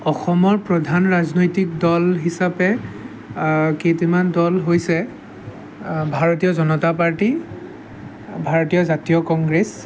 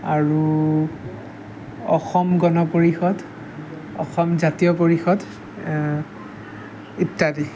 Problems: background sounds at intervals